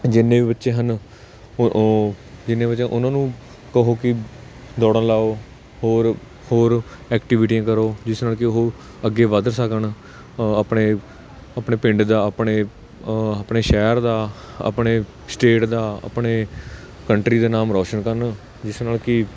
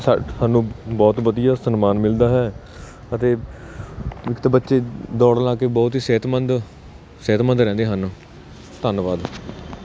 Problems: constant background noise